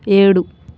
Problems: none marked